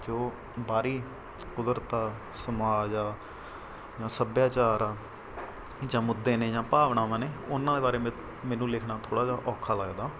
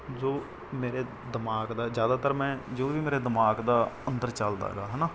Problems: none marked